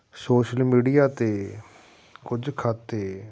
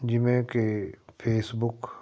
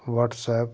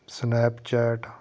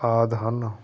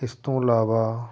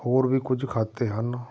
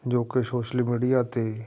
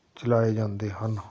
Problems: background sounds at intervals